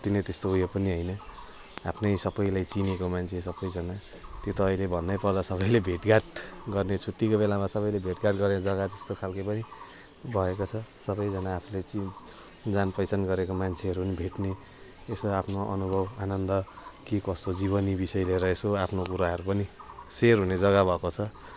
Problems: constant background noise